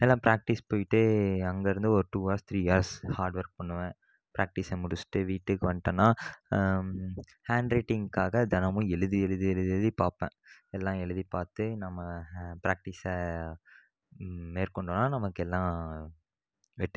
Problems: background sounds at intervals